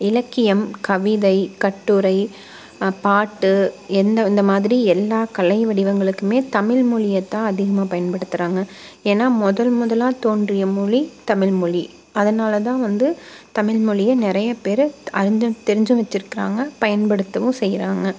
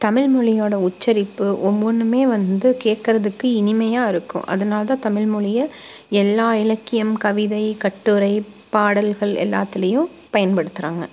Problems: constant background noise